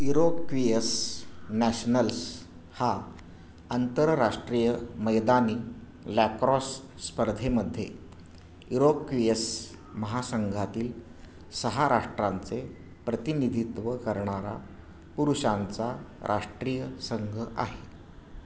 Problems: constant background noise